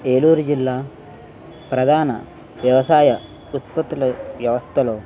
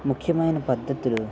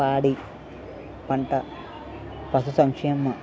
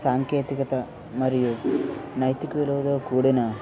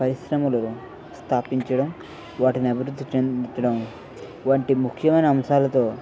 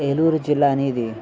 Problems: constant background noise, background conversations at intervals